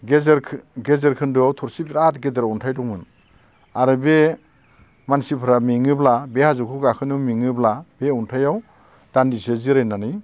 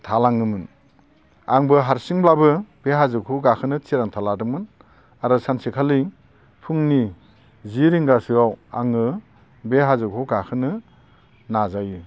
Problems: constant background noise